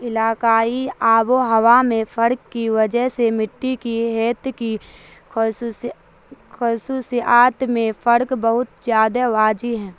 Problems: constant background noise